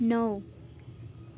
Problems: none marked